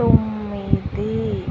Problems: constant background noise